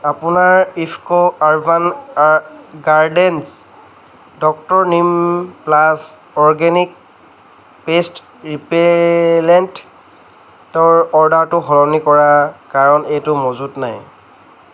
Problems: constant background noise, background conversations at intervals